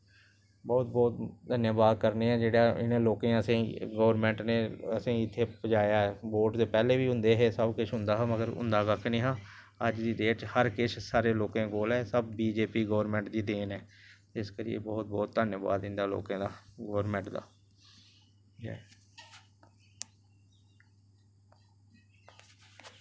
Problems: none marked